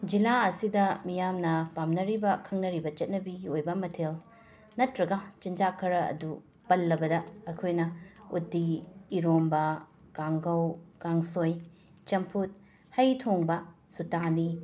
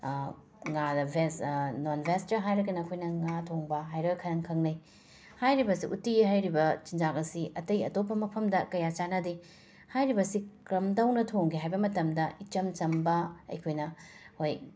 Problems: background sounds at intervals, background conversations at intervals